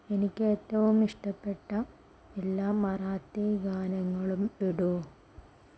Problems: low volume